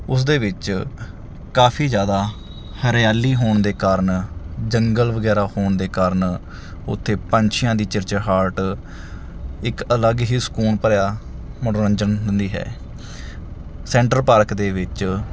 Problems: background sounds at intervals